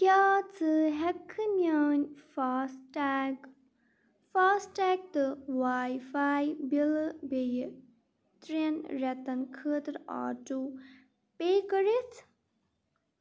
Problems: none marked